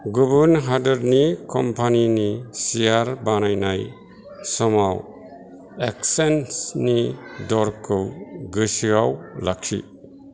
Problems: none marked